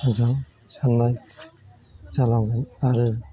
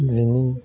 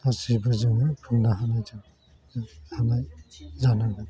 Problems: constant background noise